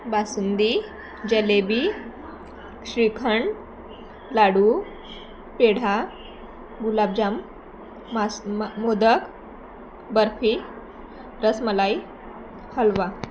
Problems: constant background noise, continuous background conversations